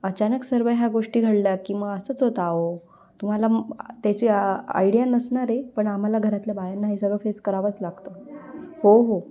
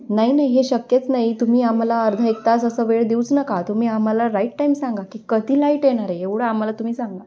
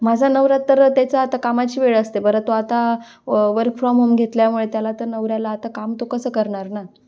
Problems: none marked